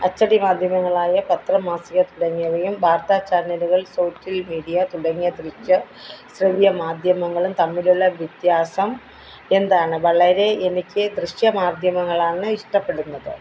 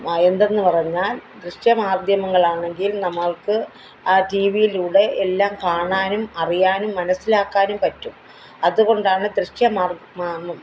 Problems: background sounds at intervals